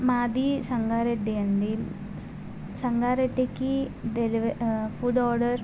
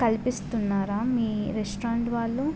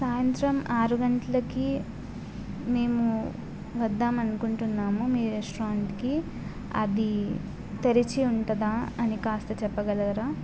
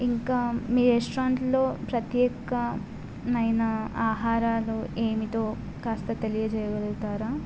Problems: constant background noise